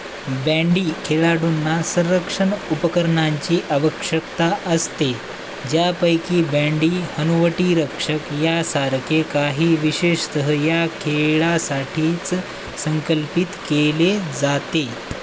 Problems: constant background noise